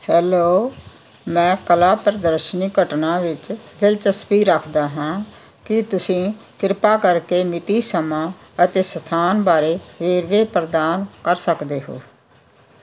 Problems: constant background noise